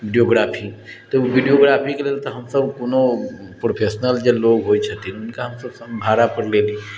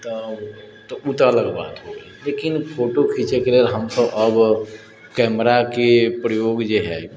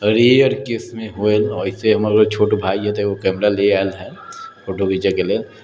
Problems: none marked